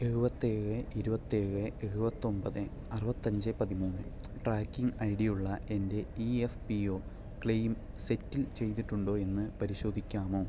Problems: low volume